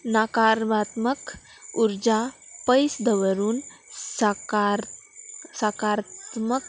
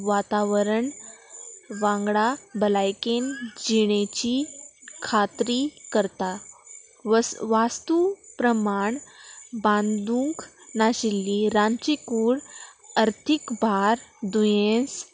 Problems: none marked